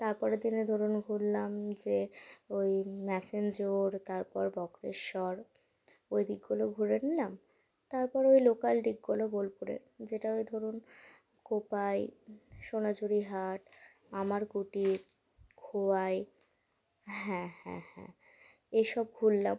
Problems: none marked